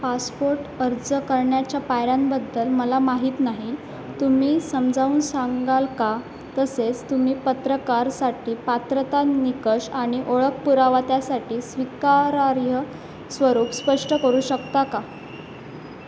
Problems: constant background noise, background conversations at intervals